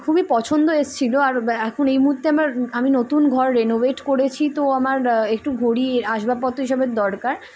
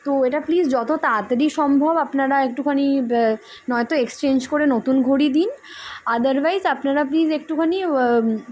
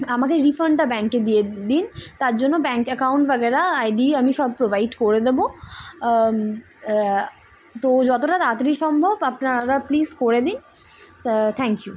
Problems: constant background noise